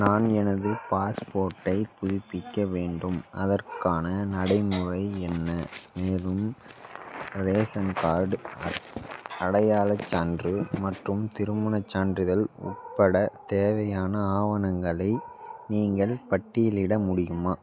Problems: background conversations at intervals